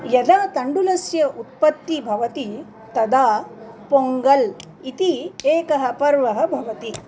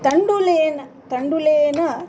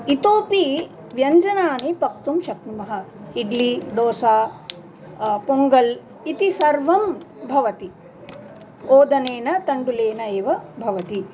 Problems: continuous background conversations